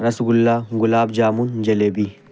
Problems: constant background noise